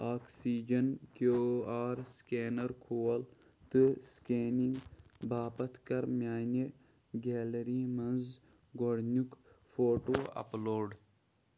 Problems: background sounds at intervals, low volume